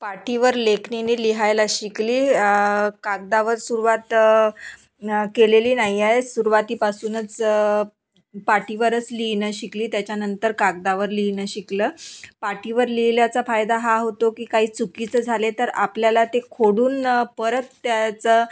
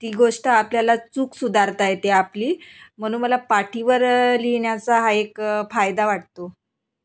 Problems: none marked